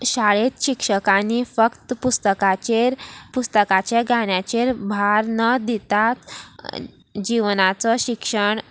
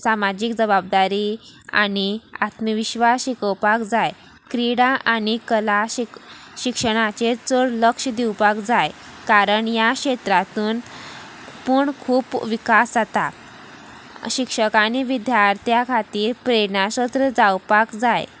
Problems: none marked